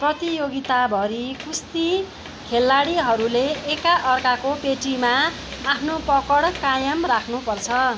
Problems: background sounds at intervals